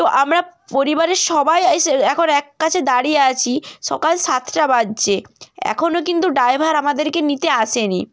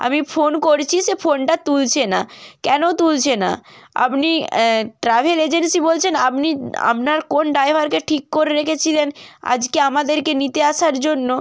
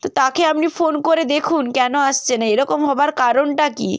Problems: none marked